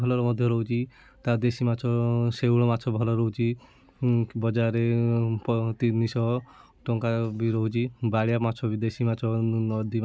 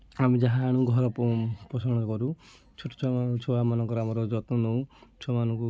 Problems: constant background noise, continuous background conversations